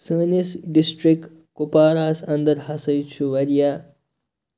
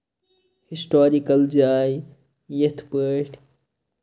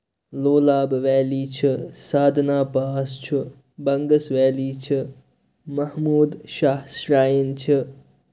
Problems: none marked